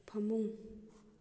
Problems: low volume